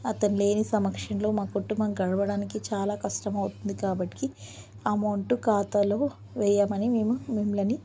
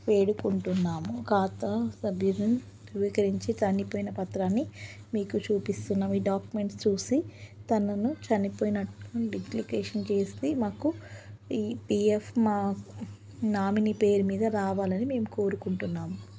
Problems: none marked